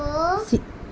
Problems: background sounds at intervals